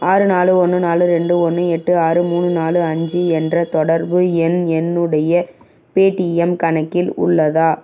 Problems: background sounds at intervals